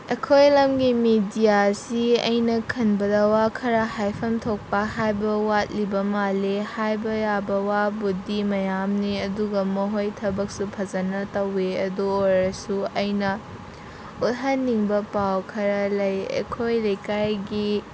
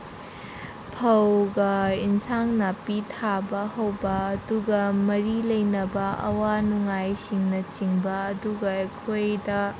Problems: constant background noise